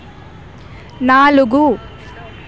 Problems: none marked